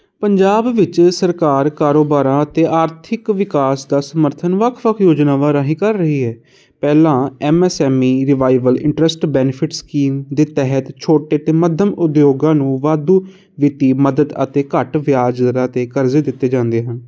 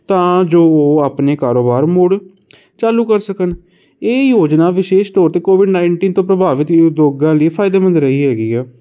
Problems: constant background noise